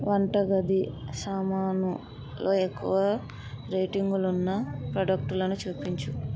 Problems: background conversations at intervals